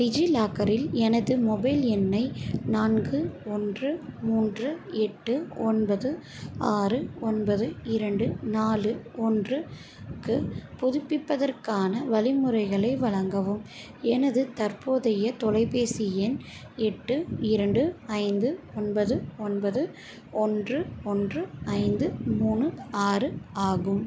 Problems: background sounds at intervals